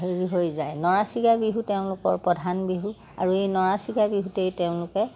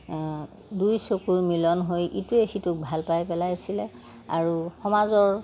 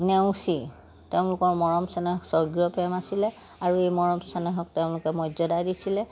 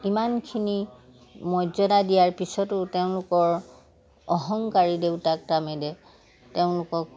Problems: background sounds at intervals